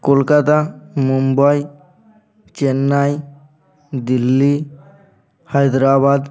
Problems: none marked